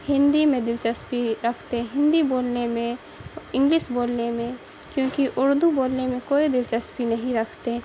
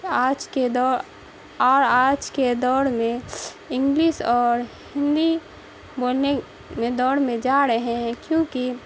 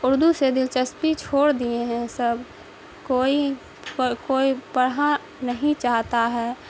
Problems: constant background noise